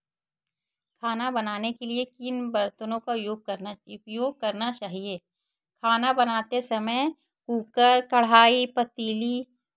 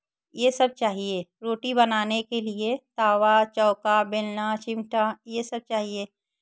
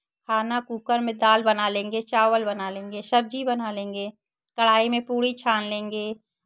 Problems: background sounds at intervals